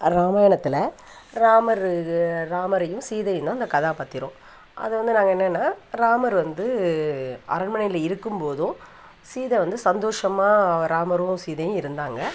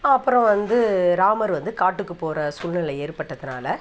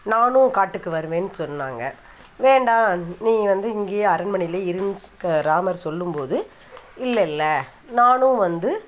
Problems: none marked